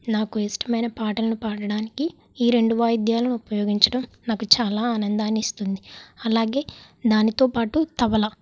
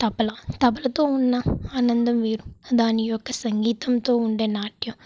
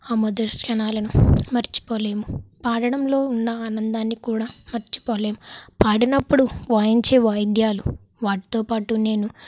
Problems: background sounds at intervals